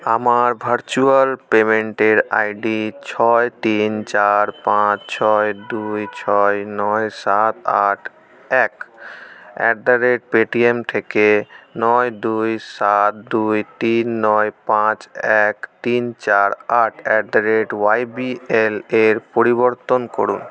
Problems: constant background noise